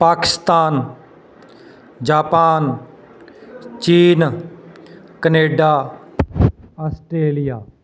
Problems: constant background noise, background conversations at intervals